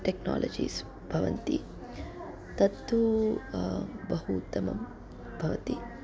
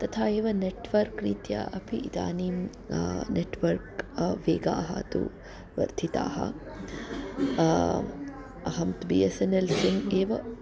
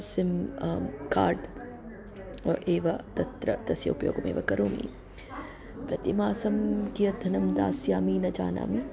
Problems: none marked